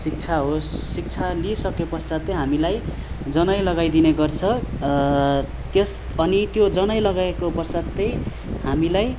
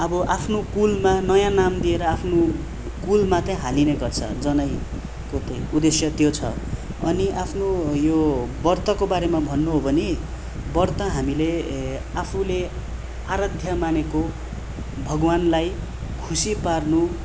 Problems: none marked